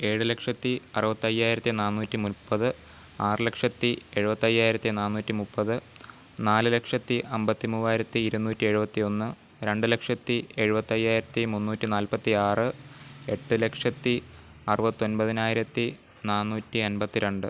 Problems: none marked